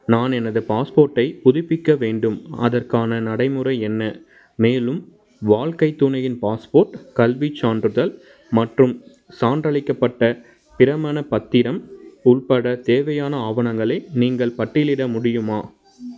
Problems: background sounds at intervals